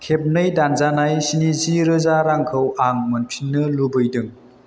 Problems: constant background noise